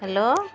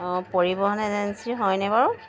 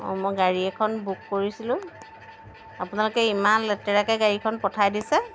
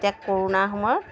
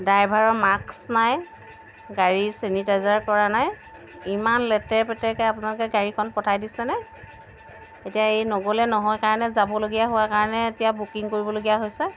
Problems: background sounds at intervals